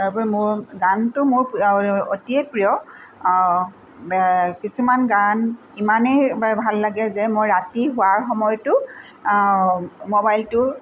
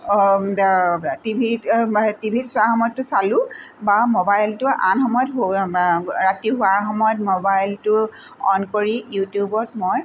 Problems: none marked